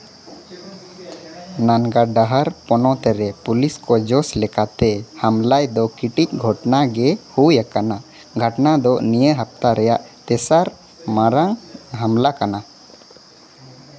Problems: constant background noise